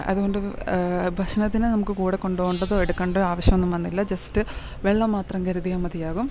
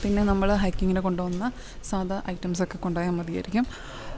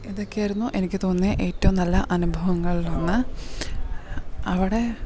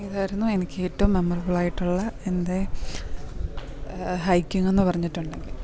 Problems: none marked